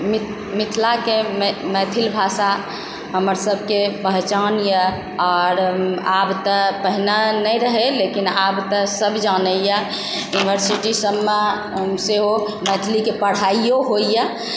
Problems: background sounds at intervals